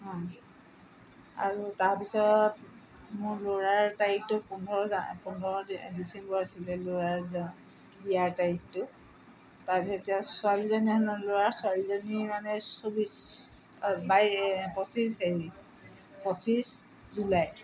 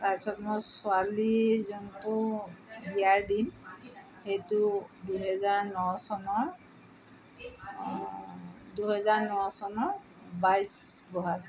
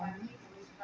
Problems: background sounds at intervals, background conversations at intervals